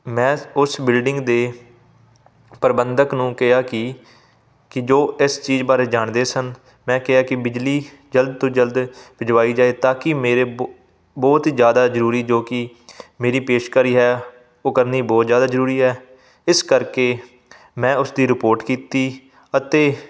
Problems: none marked